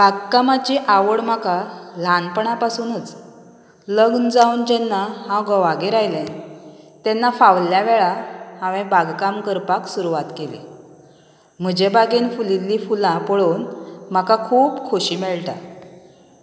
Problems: none marked